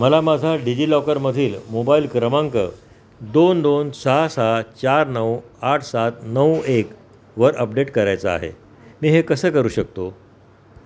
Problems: constant background noise